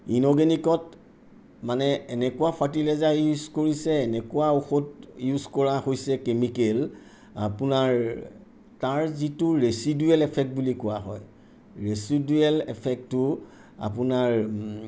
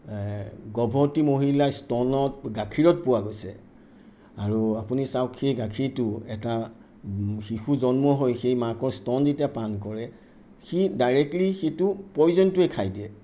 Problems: none marked